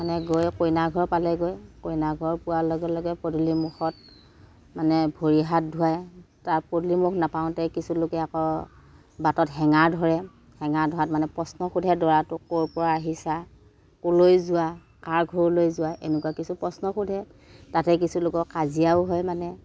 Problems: none marked